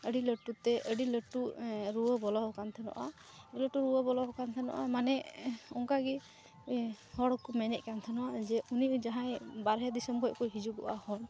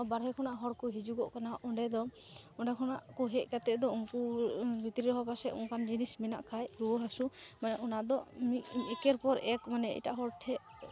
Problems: background sounds at intervals, low volume